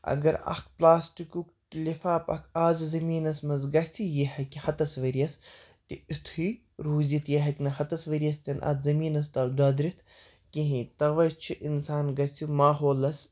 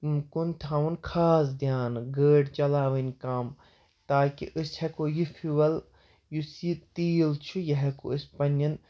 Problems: none marked